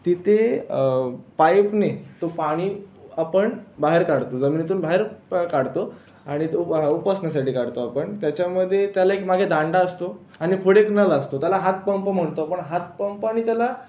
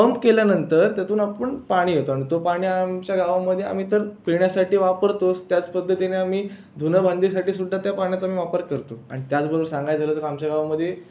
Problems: none marked